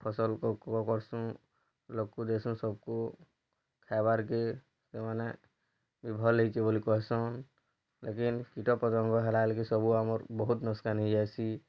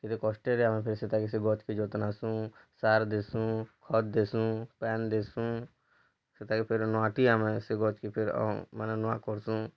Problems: low volume